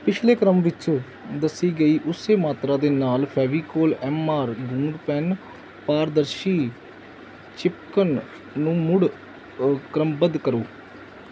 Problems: background sounds at intervals